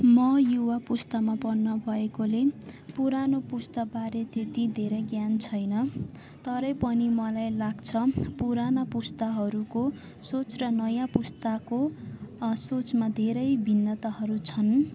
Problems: constant background noise, continuous background conversations